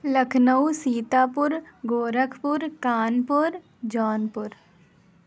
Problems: none marked